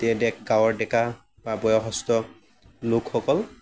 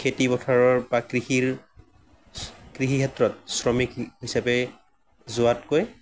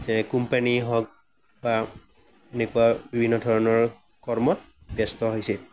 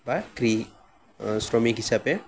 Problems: none marked